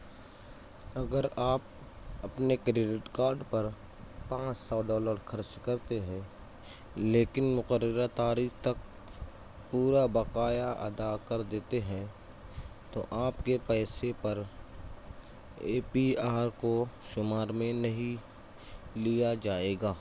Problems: constant background noise, low volume